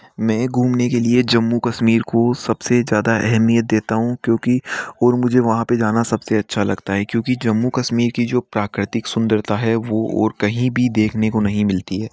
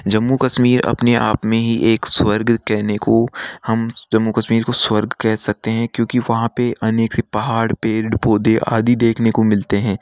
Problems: none marked